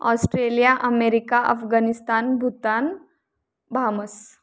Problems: background sounds at intervals